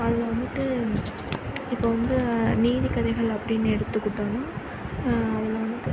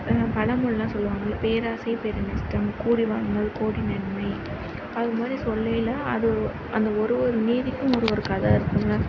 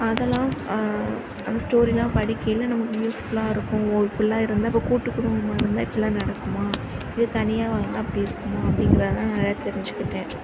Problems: constant background noise